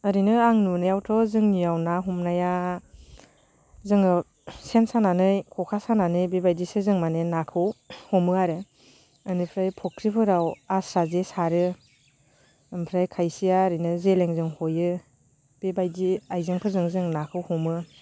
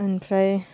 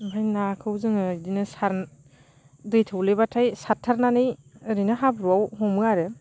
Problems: constant background noise